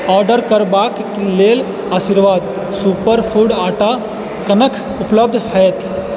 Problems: constant background noise